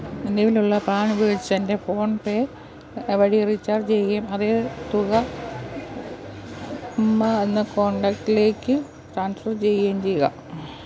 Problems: background sounds at intervals